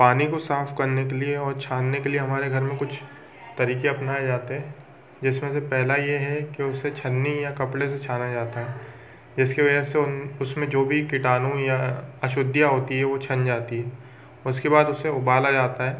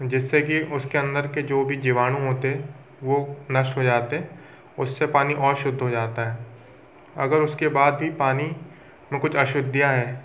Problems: constant background noise, background conversations at intervals